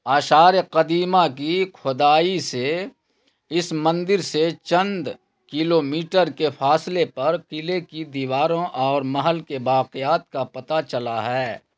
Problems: none marked